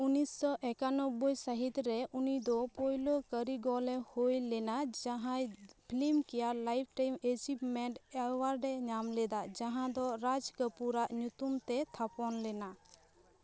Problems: background sounds at intervals, continuous background conversations